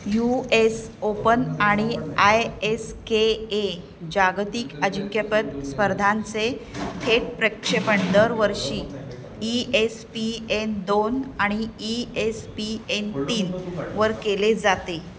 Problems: constant background noise, continuous background conversations